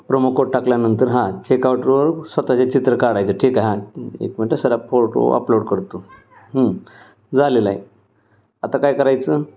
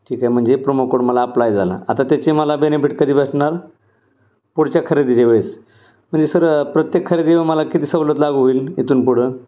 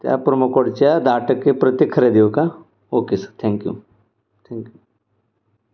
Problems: none marked